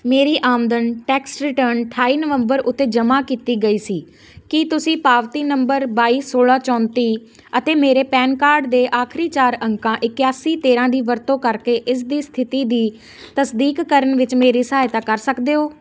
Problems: constant background noise